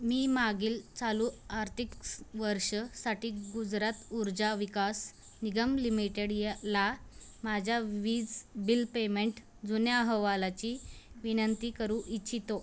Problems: none marked